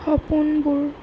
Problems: constant background noise, low volume